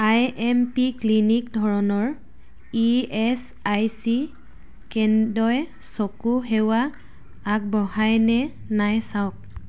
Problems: none marked